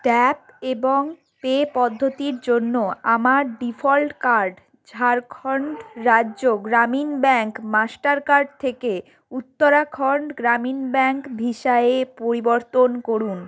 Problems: background sounds at intervals